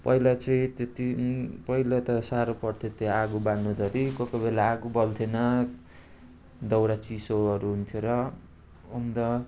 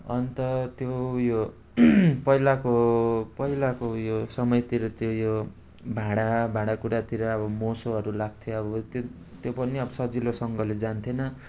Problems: none marked